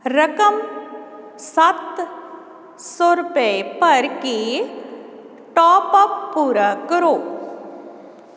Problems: none marked